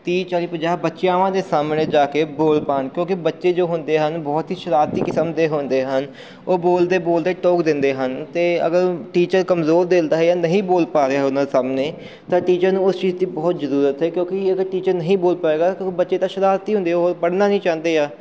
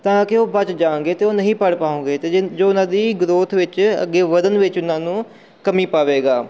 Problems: none marked